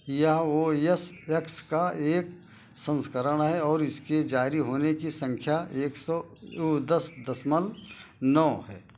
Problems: constant background noise